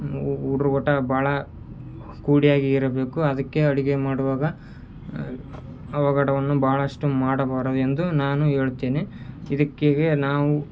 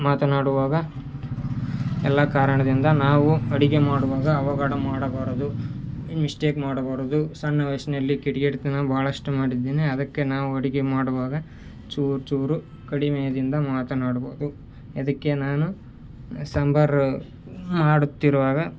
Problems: none marked